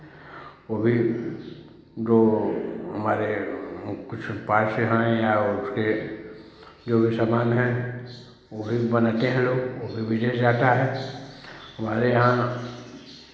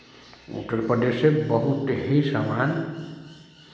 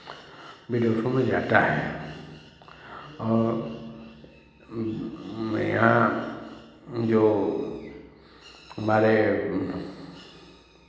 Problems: none marked